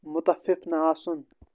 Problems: constant background noise